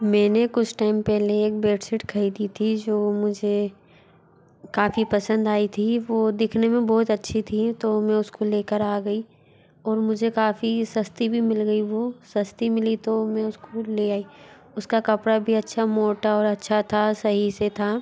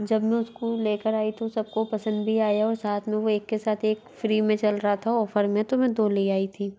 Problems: constant background noise, background conversations at intervals